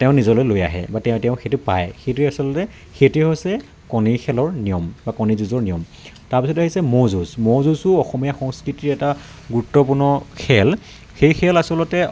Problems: none marked